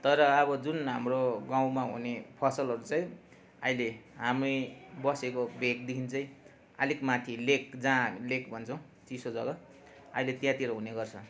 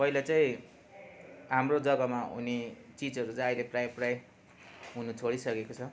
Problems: continuous background conversations